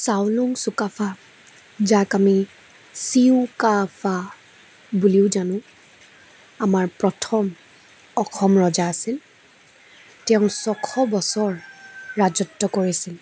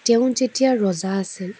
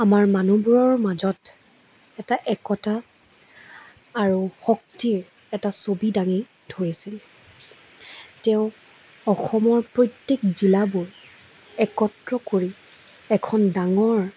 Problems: constant background noise